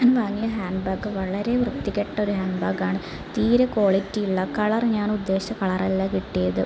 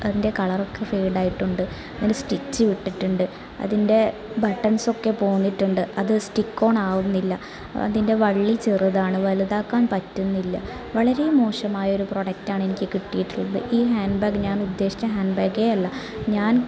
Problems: continuous background conversations